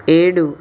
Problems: constant background noise